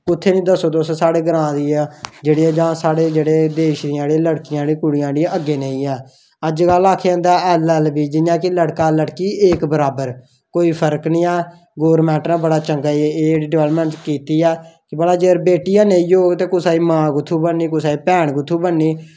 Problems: none marked